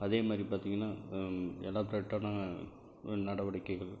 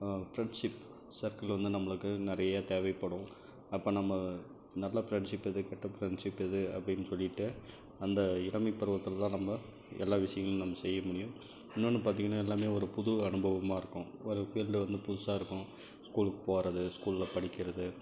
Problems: none marked